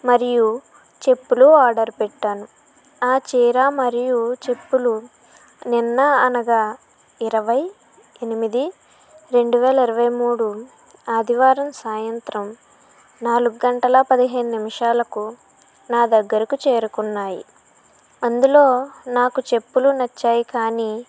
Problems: none marked